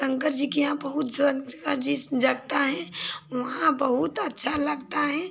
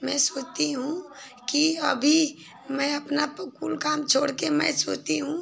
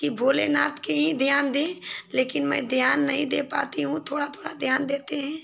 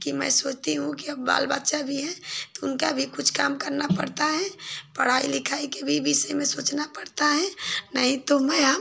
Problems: background sounds at intervals